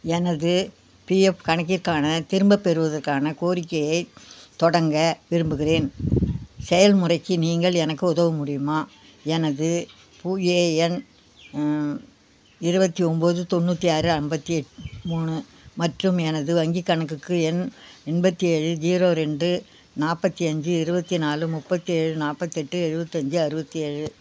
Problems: none marked